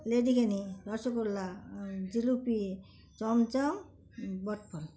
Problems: constant background noise, continuous background conversations